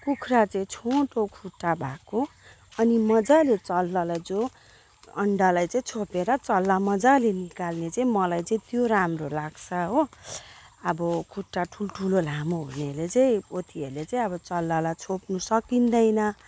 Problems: background sounds at intervals